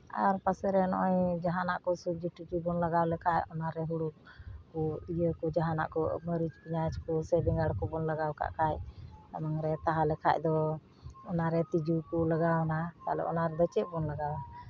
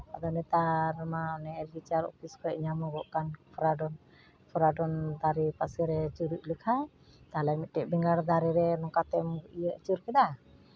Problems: none marked